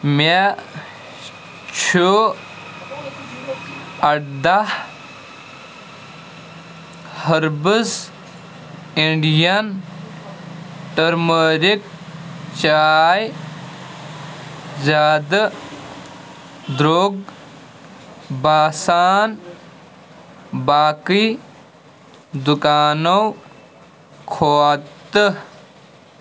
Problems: constant background noise